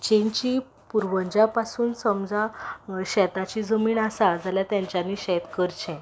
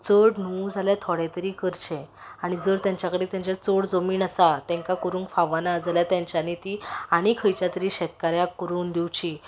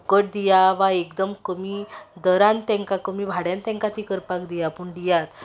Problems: background sounds at intervals